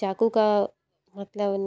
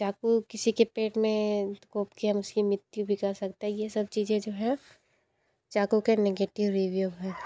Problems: constant background noise, background conversations at intervals